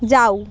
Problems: constant background noise